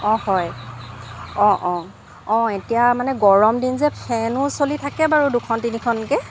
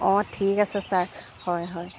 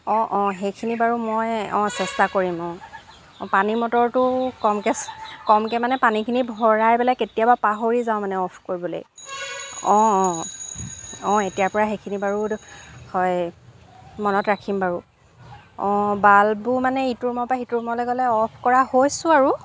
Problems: background sounds at intervals